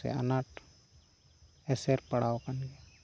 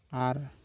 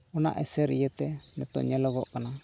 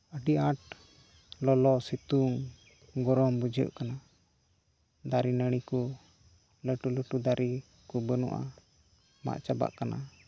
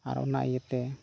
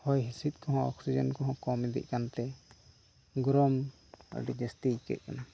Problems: none marked